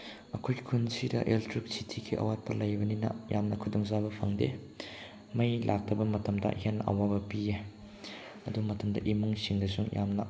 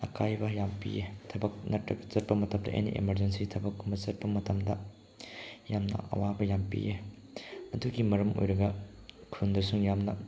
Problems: none marked